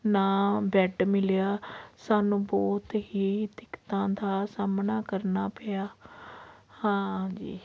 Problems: background sounds at intervals